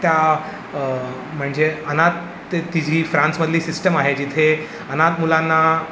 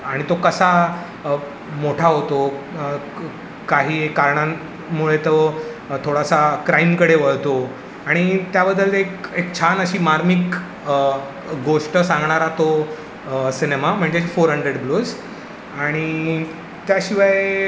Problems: background sounds at intervals